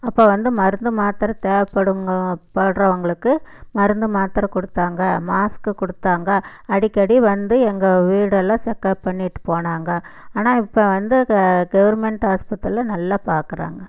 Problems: none marked